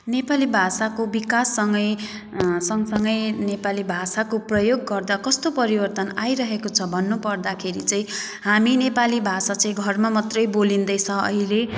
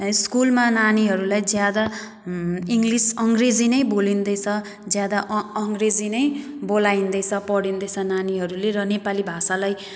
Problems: background sounds at intervals